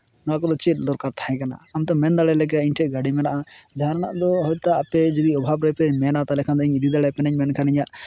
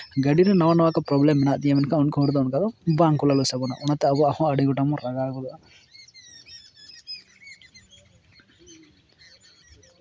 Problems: constant background noise